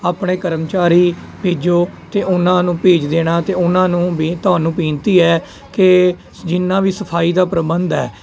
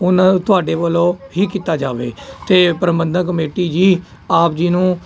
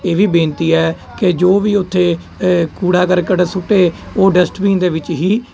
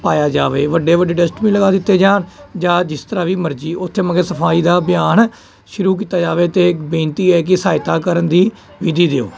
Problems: constant background noise